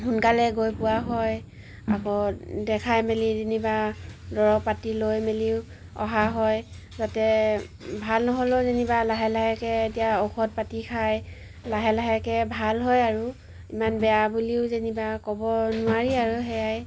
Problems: background sounds at intervals